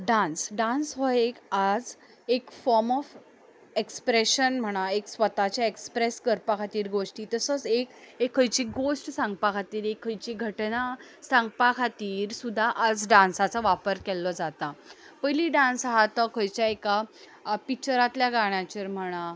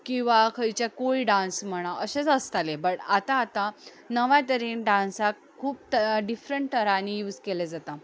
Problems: background sounds at intervals